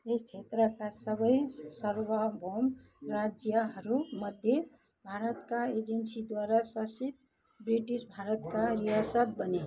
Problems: continuous background conversations